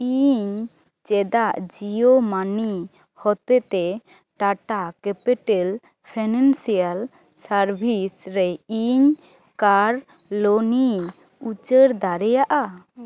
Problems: background conversations at intervals